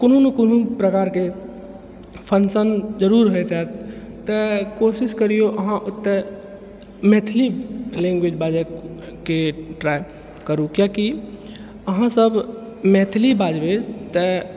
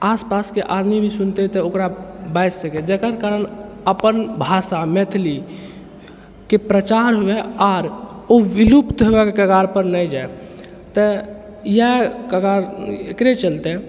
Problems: none marked